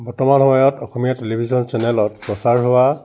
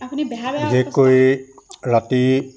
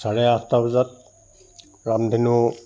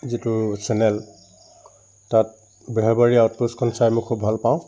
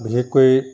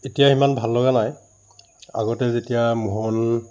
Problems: none marked